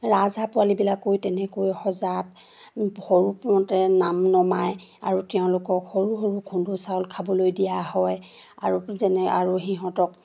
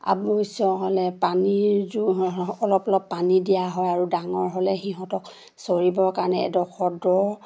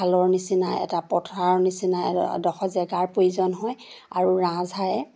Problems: none marked